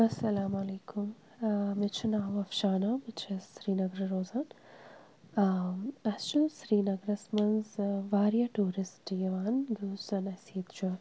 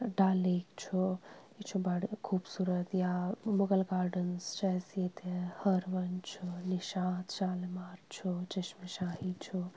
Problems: constant background noise